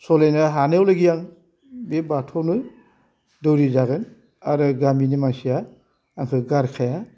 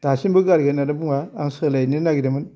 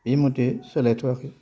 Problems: constant background noise